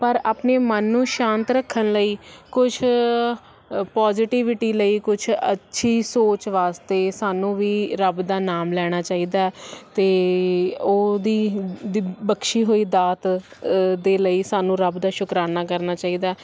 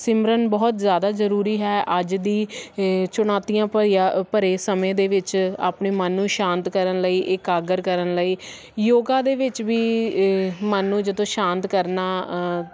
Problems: constant background noise